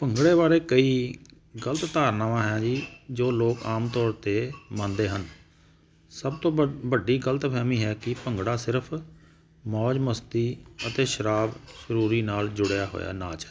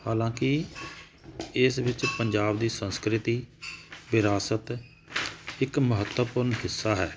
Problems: none marked